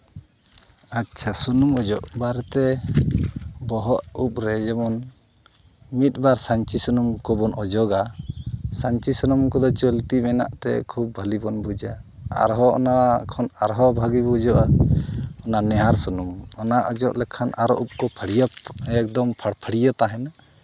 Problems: background sounds at intervals